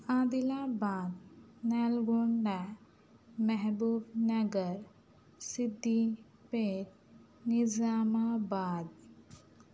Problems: none marked